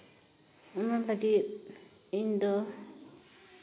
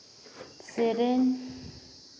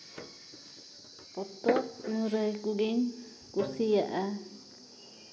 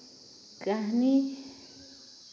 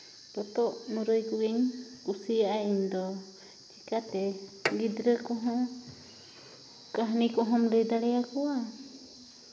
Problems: background sounds at intervals